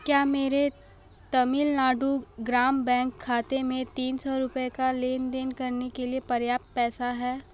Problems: none marked